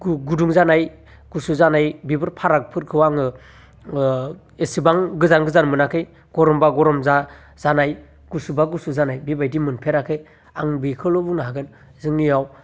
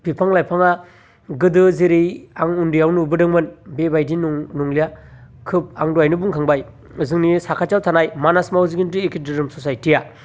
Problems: constant background noise